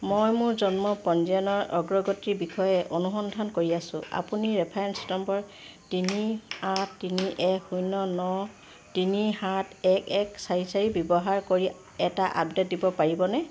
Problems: none marked